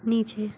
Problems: none marked